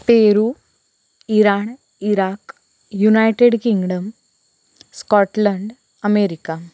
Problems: constant background noise